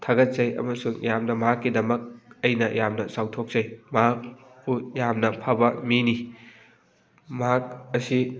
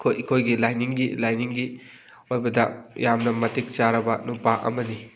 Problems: background sounds at intervals, background conversations at intervals